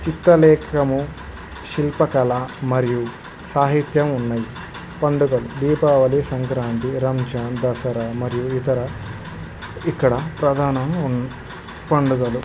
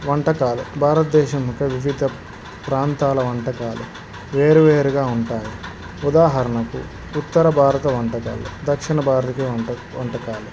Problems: constant background noise